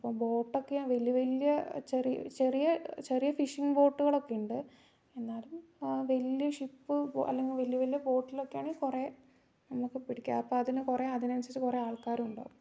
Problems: low volume